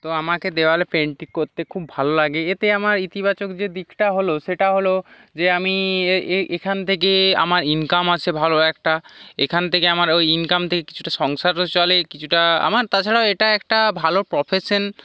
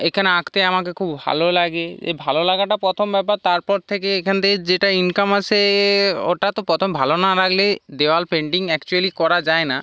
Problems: background sounds at intervals